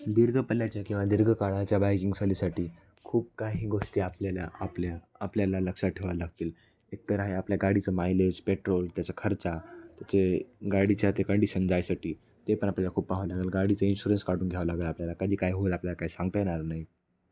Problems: background sounds at intervals, continuous background conversations